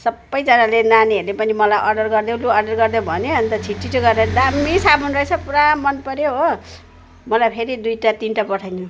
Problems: constant background noise